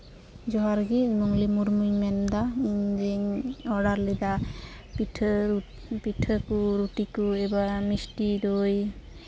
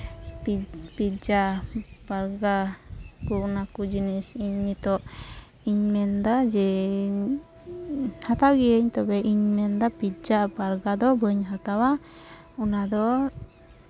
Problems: background sounds at intervals, background conversations at intervals